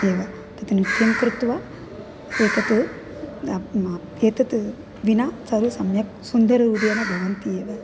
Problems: constant background noise